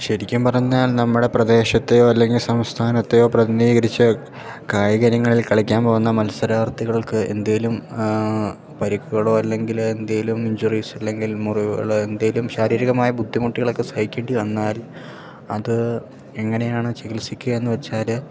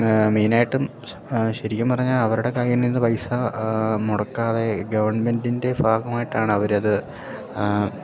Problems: background sounds at intervals